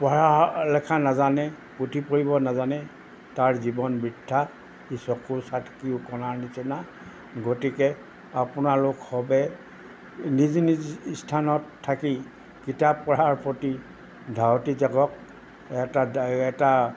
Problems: background sounds at intervals